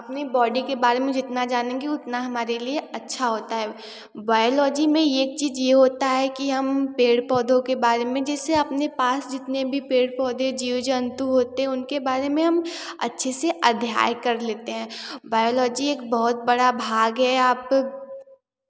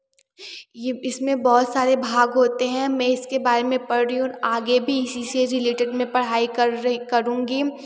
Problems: none marked